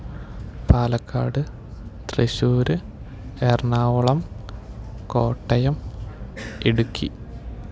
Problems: low volume